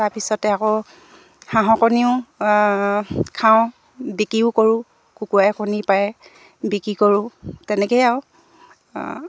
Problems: none marked